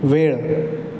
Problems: none marked